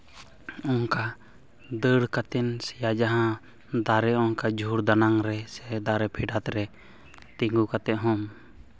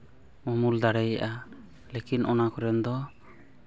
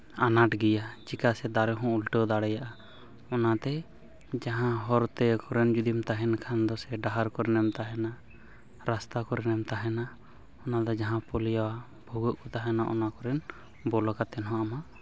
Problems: background sounds at intervals